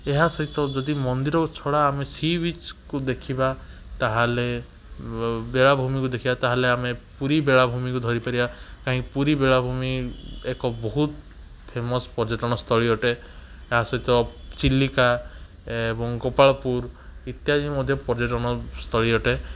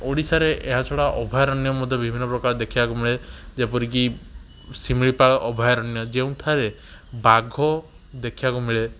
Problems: none marked